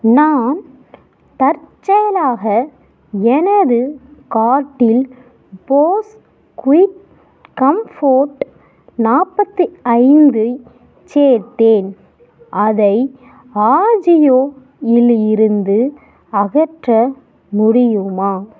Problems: background sounds at intervals